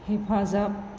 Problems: none marked